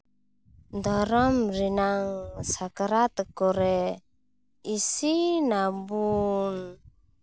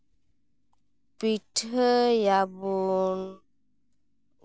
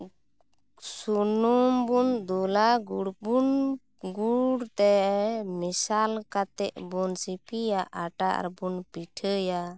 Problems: background sounds at intervals